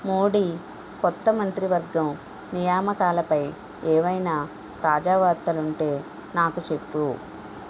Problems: constant background noise